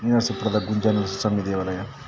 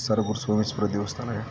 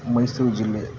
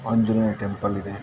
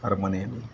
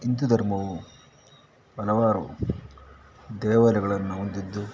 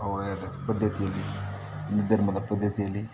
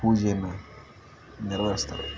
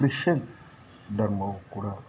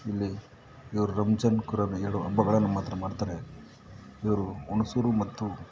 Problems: background sounds at intervals